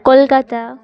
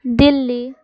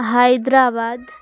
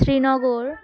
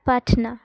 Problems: continuous background conversations